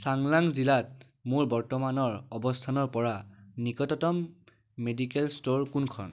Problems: background sounds at intervals